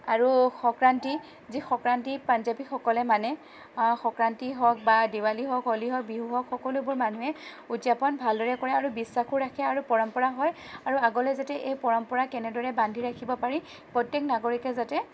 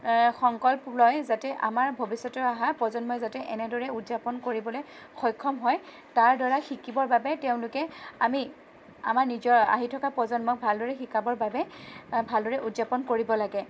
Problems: none marked